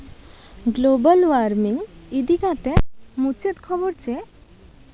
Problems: constant background noise